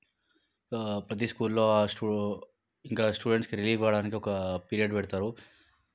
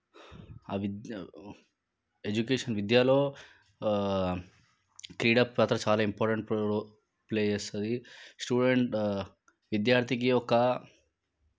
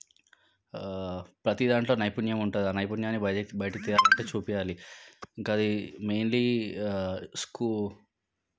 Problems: background sounds at intervals